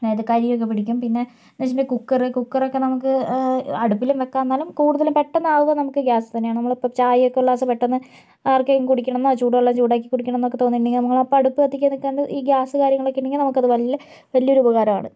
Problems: low volume